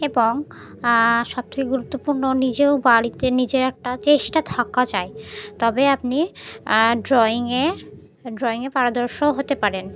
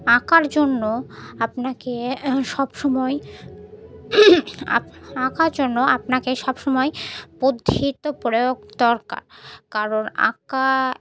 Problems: none marked